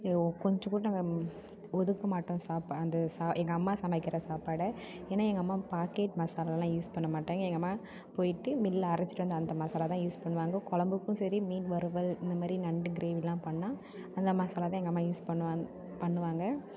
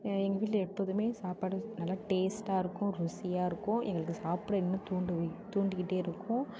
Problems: background conversations at intervals